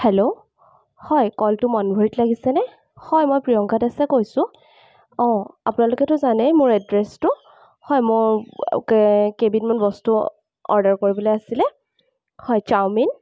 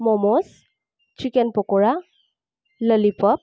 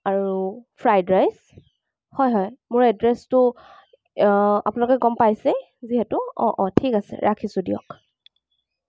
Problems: background sounds at intervals